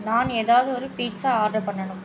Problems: none marked